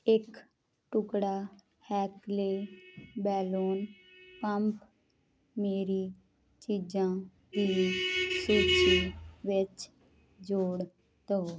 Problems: constant background noise